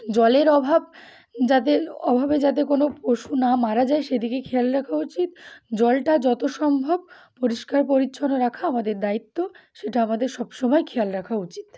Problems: background sounds at intervals